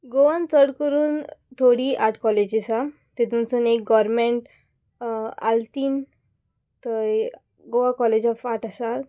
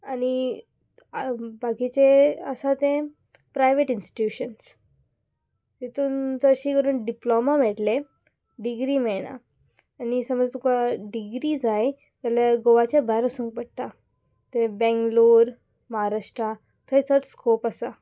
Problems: background sounds at intervals